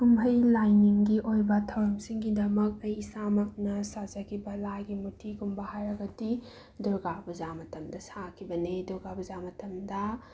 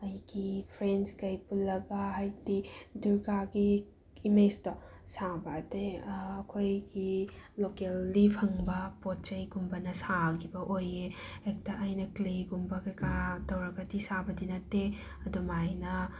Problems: background sounds at intervals